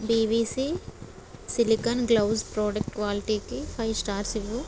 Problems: none marked